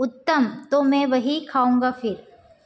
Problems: background sounds at intervals